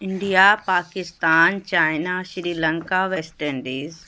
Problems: background sounds at intervals